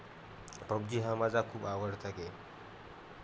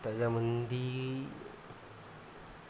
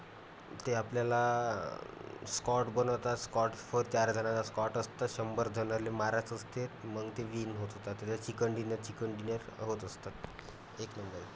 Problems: none marked